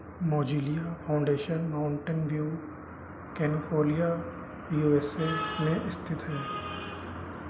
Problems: constant background noise